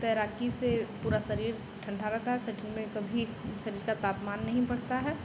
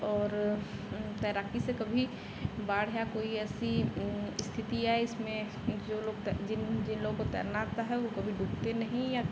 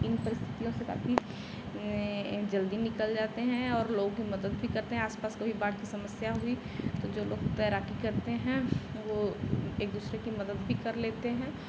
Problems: constant background noise